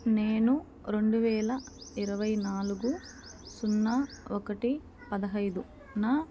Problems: background sounds at intervals, background conversations at intervals